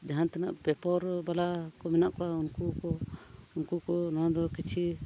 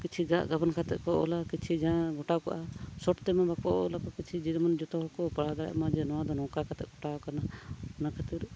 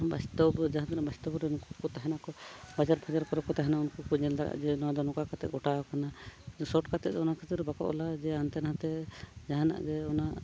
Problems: background sounds at intervals